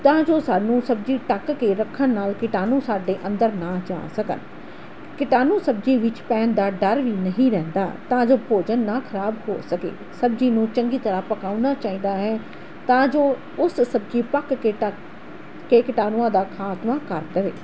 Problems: constant background noise